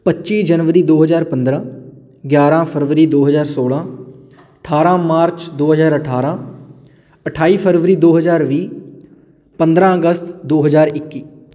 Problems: none marked